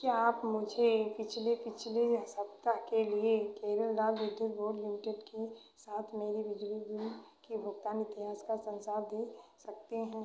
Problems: constant background noise